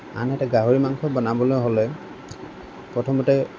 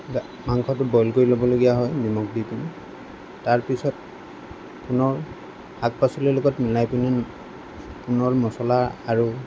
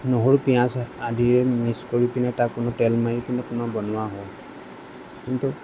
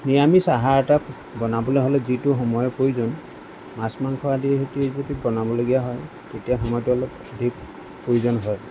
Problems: constant background noise